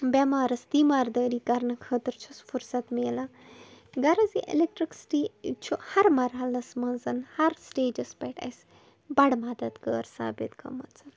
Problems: background sounds at intervals, background conversations at intervals